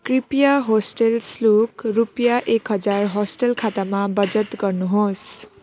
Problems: constant background noise